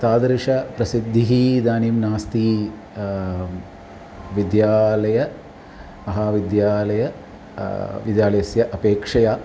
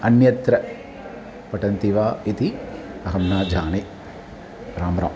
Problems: none marked